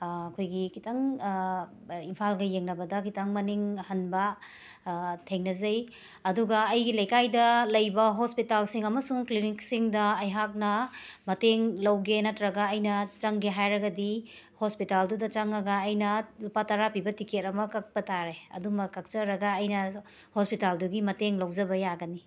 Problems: background sounds at intervals